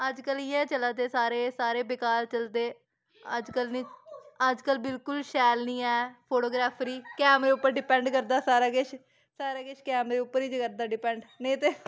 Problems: background sounds at intervals